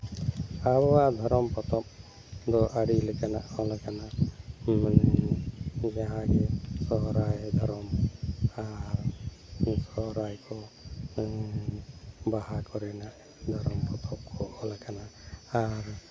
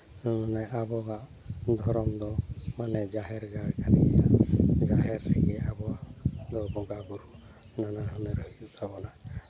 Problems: background sounds at intervals